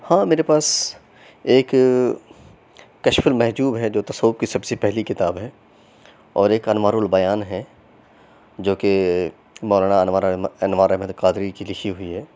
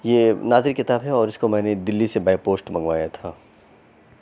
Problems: none marked